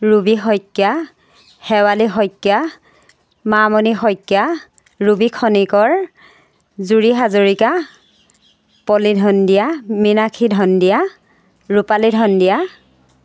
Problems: none marked